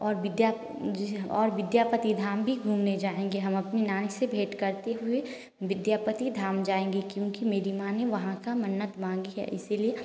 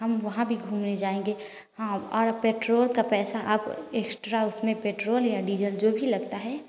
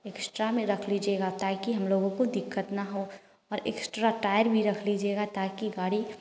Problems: constant background noise